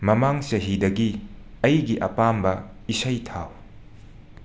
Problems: constant background noise